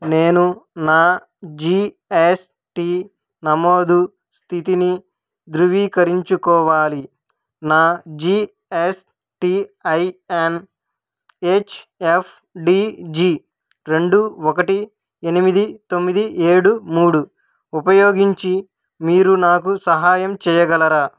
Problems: none marked